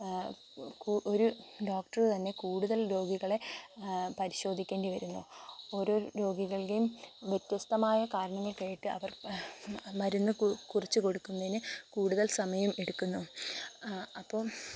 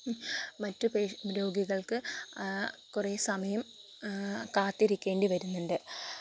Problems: constant background noise